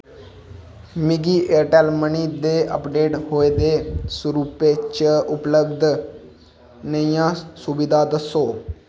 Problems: constant background noise